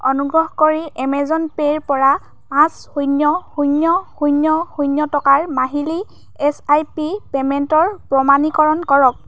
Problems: background sounds at intervals